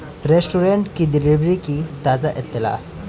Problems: constant background noise